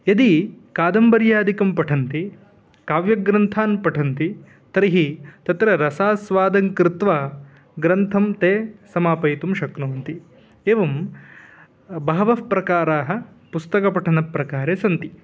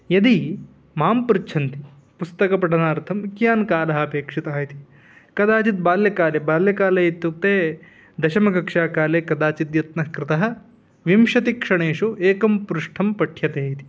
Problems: background sounds at intervals